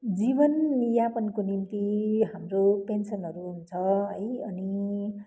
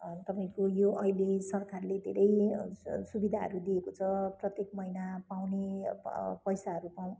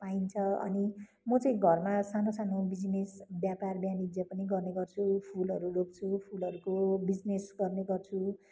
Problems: constant background noise